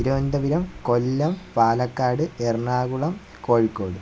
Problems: constant background noise